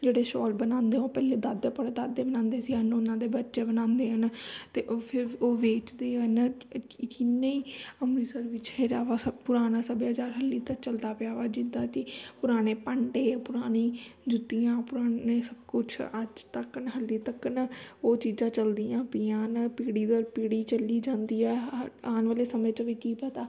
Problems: none marked